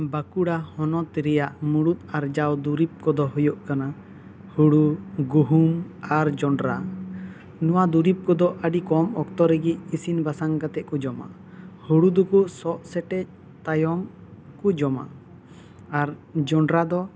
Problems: constant background noise